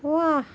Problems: none marked